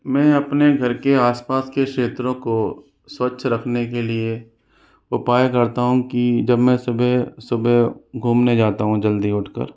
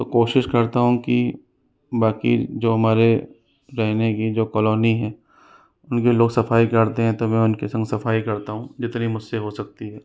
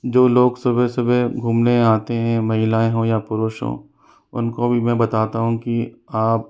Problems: background sounds at intervals